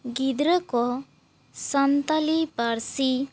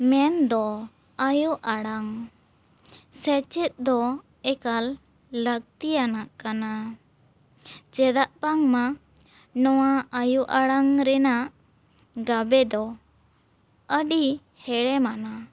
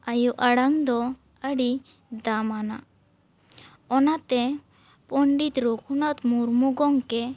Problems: none marked